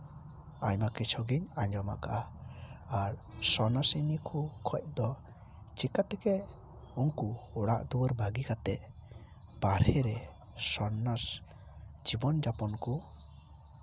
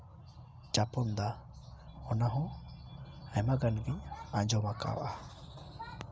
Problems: none marked